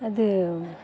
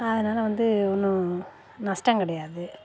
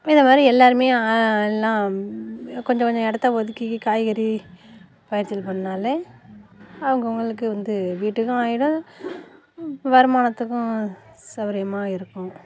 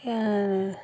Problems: constant background noise